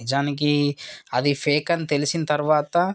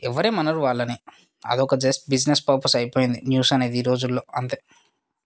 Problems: background sounds at intervals